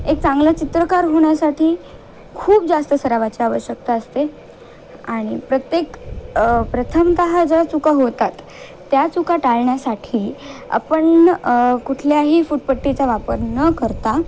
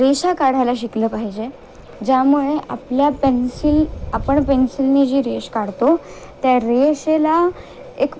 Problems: constant background noise